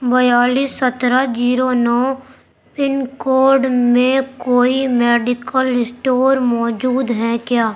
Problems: background conversations at intervals